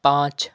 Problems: none marked